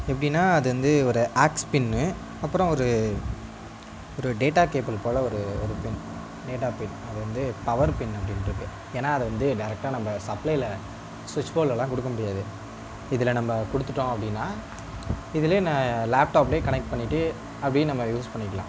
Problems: constant background noise